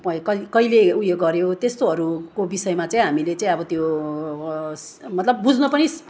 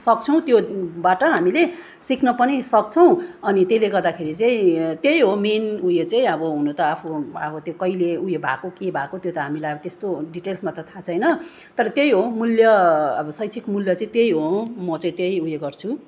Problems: none marked